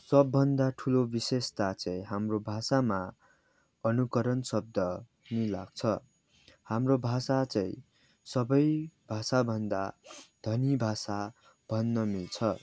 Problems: background sounds at intervals, background conversations at intervals